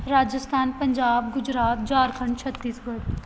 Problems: none marked